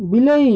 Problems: none marked